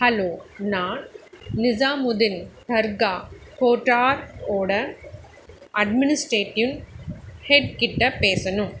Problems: constant background noise